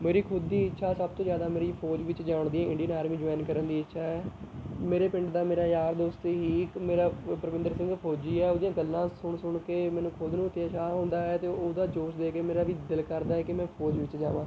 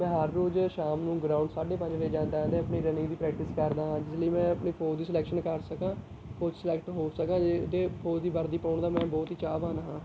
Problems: none marked